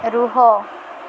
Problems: constant background noise